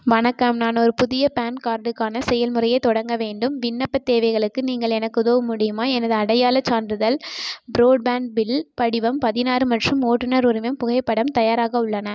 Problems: none marked